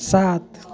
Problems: constant background noise, low volume